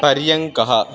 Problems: background sounds at intervals